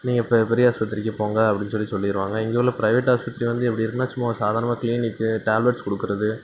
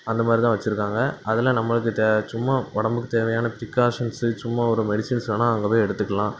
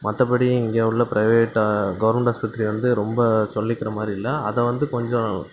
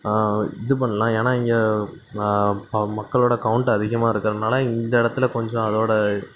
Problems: none marked